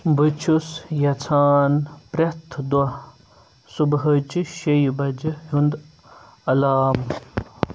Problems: background sounds at intervals